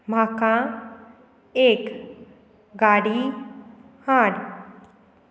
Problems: constant background noise